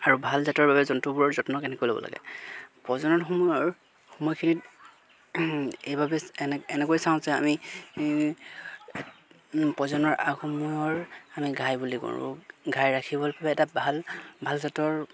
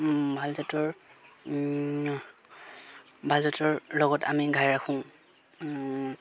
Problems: constant background noise